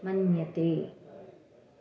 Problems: none marked